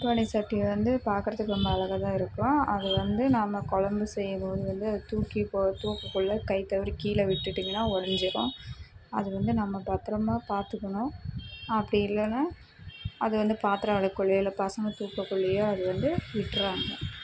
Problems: constant background noise, low volume